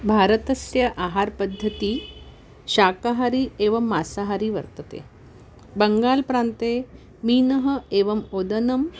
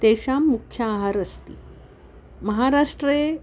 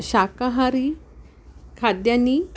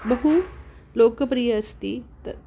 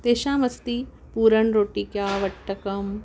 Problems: background sounds at intervals